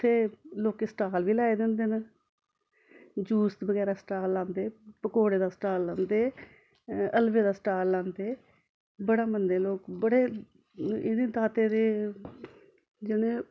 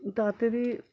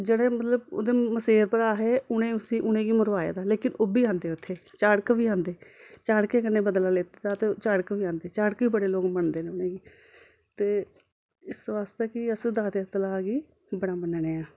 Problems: background sounds at intervals, continuous background conversations